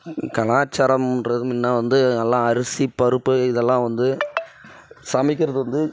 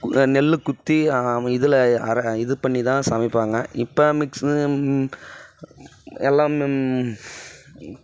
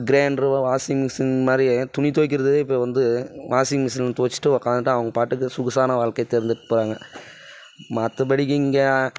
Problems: background sounds at intervals, background conversations at intervals